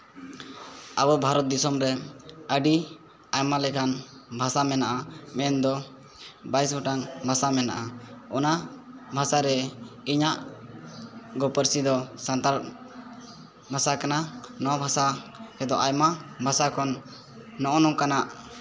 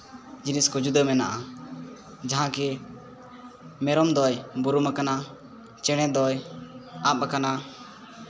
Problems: constant background noise